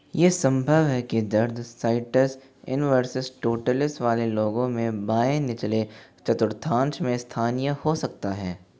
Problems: background sounds at intervals